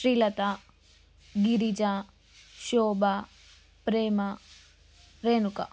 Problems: none marked